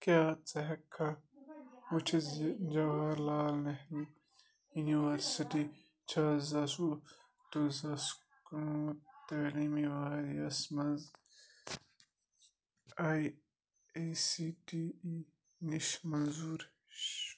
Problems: continuous background conversations